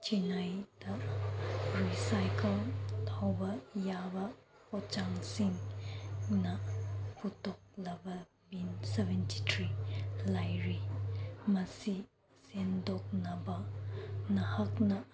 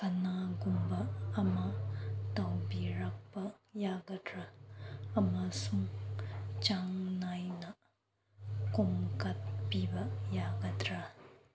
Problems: background sounds at intervals